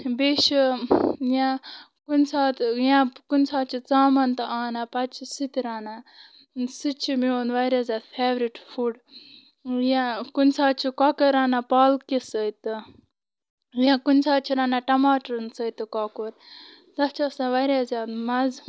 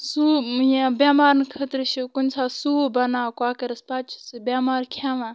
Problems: constant background noise